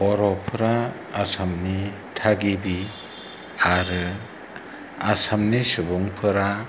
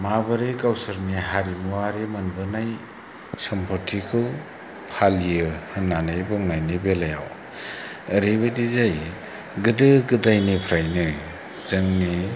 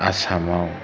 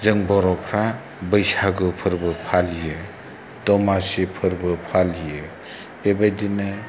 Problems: low volume